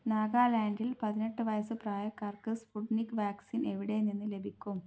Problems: low volume